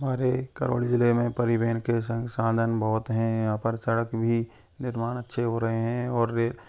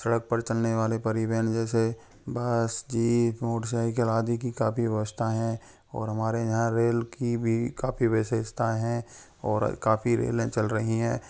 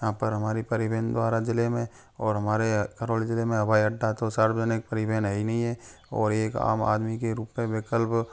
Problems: none marked